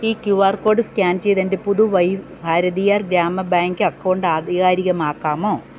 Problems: none marked